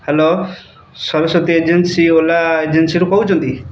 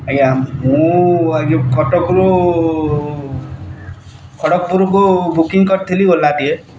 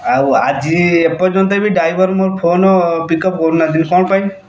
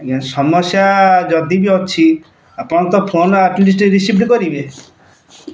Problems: background sounds at intervals